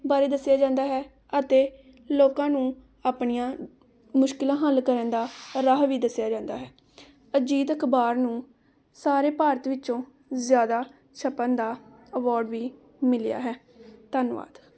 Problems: none marked